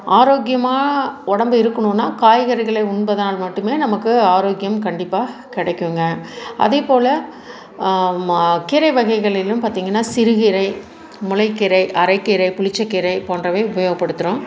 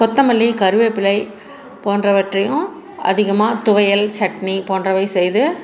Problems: background conversations at intervals